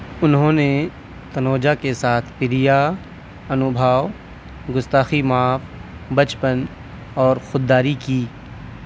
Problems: none marked